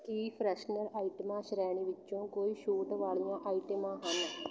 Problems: background sounds at intervals